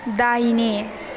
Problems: background sounds at intervals